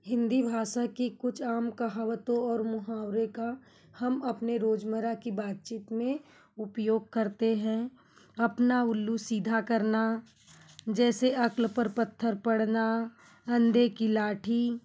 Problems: background sounds at intervals